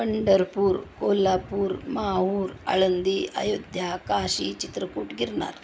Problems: none marked